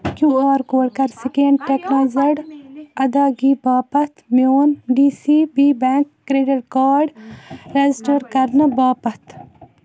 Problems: constant background noise